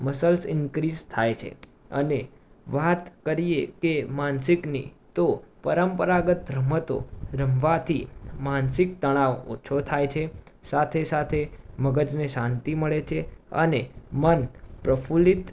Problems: background sounds at intervals